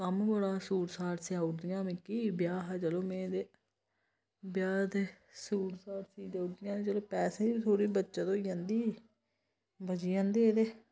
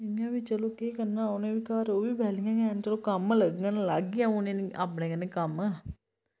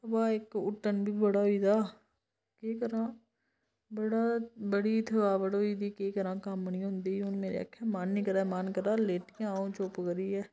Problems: background sounds at intervals